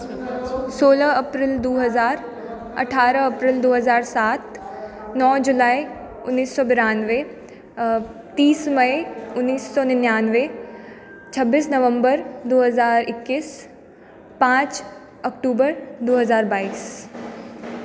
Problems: background sounds at intervals, background conversations at intervals